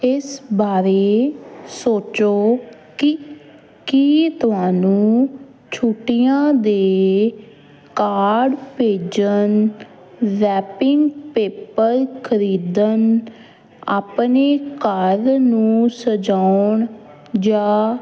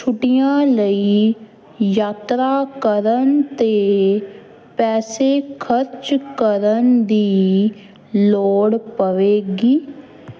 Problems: constant background noise